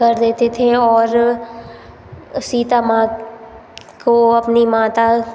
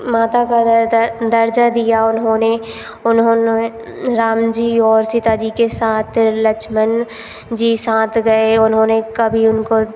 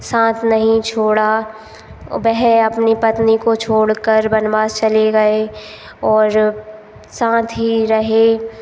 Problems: constant background noise